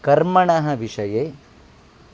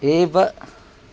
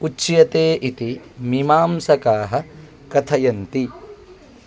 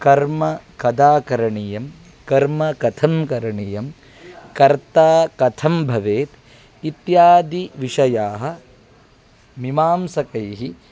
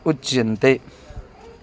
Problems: background conversations at intervals